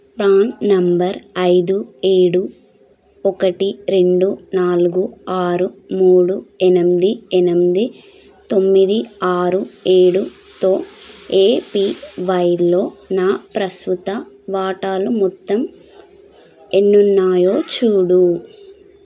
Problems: background sounds at intervals, background conversations at intervals